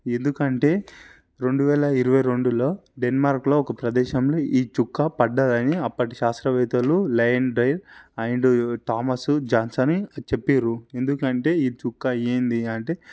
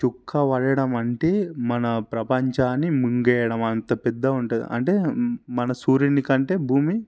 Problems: none marked